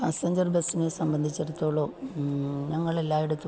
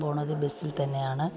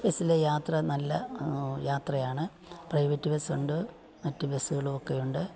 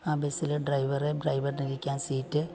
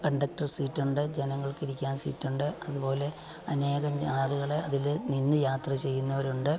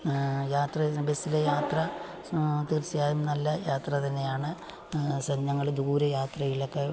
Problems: background sounds at intervals, low volume